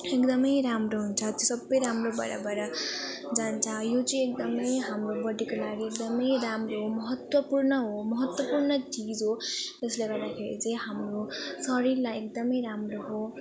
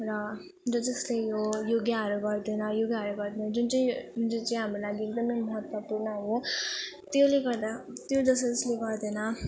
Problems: none marked